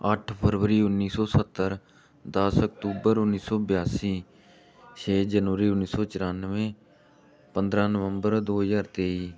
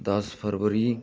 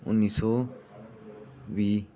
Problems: background sounds at intervals, background conversations at intervals